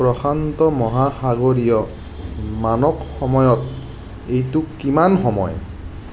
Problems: background sounds at intervals